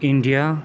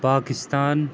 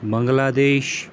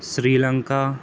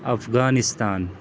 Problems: constant background noise